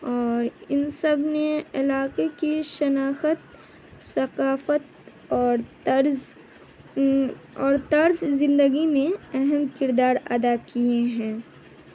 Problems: constant background noise